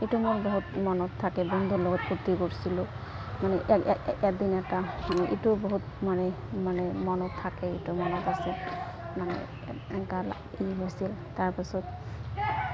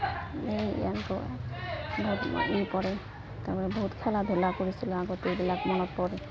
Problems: constant background noise, continuous background conversations